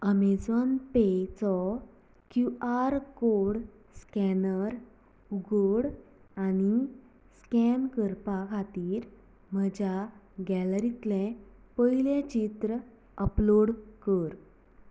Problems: low volume